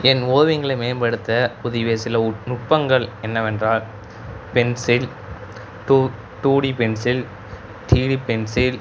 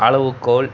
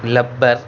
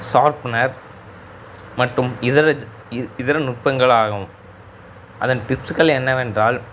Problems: background sounds at intervals